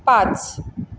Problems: none marked